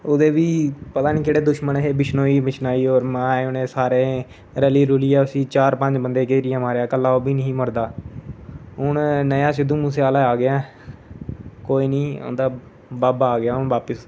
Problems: constant background noise